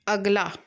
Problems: none marked